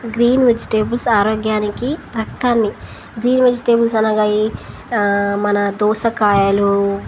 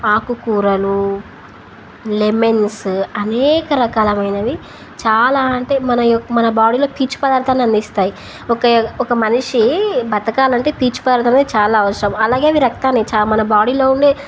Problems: none marked